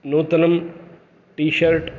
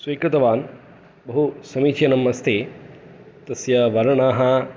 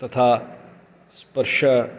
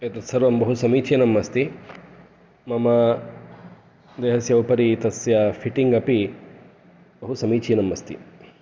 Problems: none marked